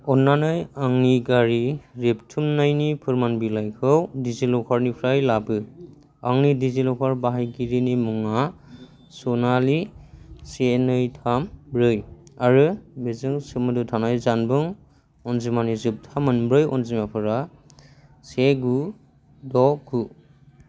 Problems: low volume